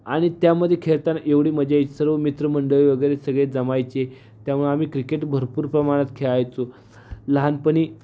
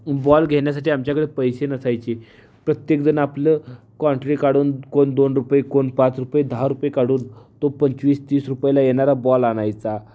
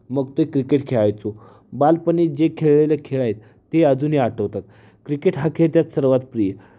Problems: constant background noise